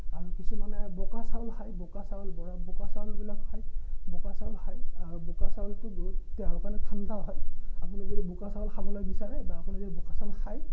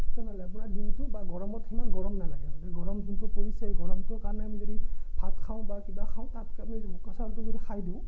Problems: none marked